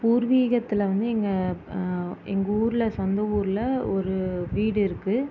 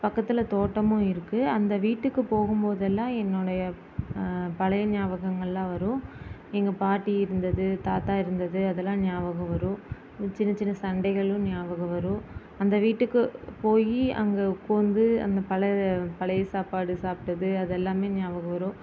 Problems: constant background noise